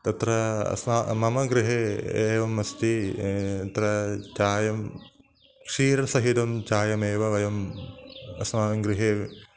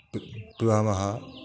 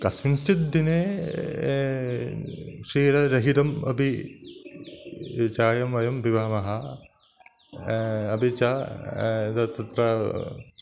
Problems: constant background noise